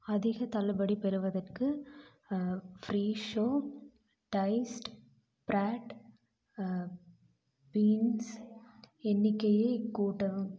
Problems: low volume